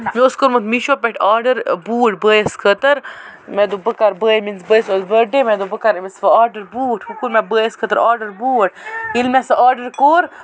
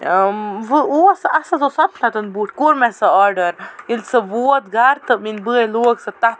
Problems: constant background noise